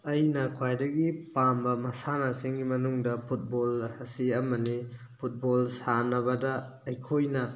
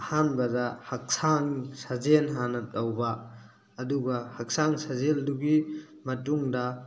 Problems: none marked